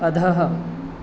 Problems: constant background noise